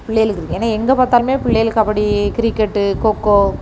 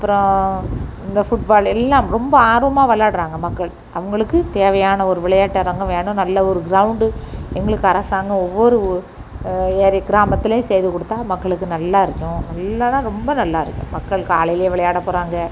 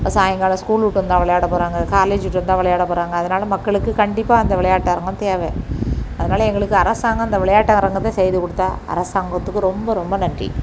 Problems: constant background noise